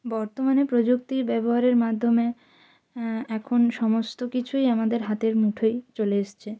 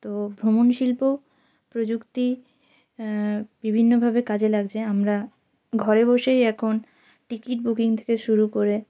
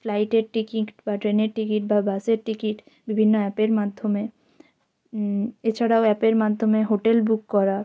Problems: background sounds at intervals